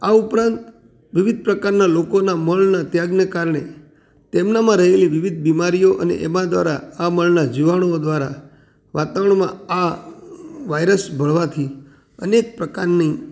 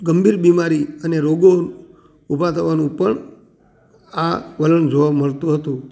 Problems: background sounds at intervals